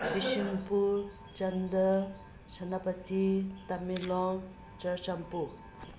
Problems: constant background noise